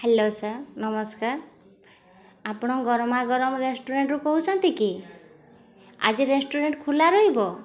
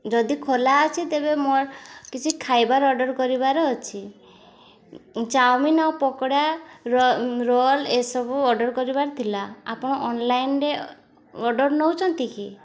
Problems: constant background noise